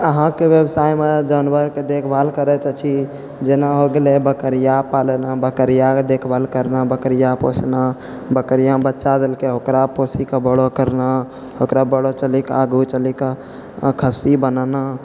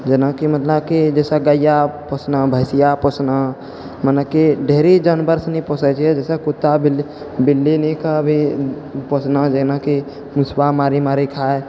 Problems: none marked